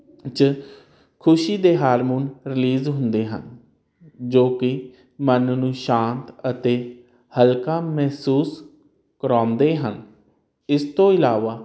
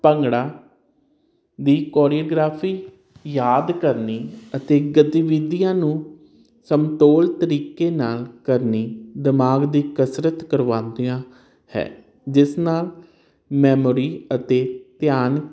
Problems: none marked